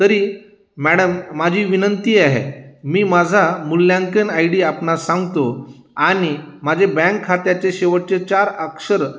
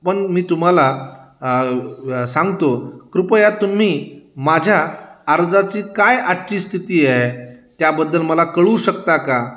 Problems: constant background noise, background conversations at intervals, echo